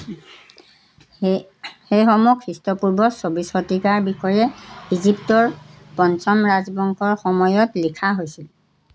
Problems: constant background noise, background conversations at intervals